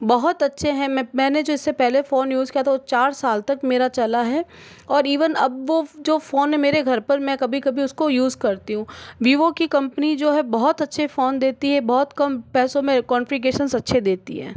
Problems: constant background noise